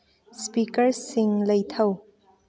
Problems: low volume